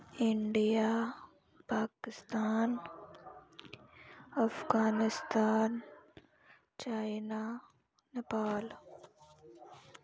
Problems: none marked